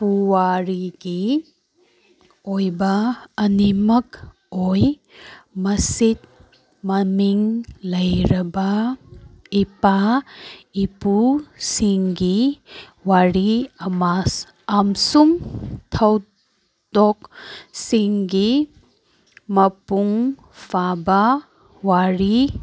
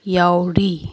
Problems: background sounds at intervals